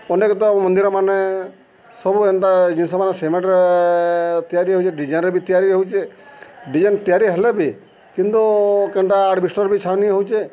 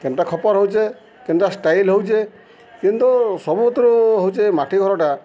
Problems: constant background noise